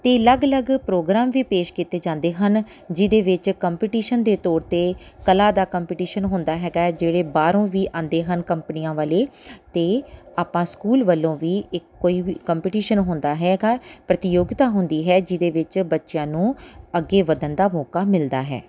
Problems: background sounds at intervals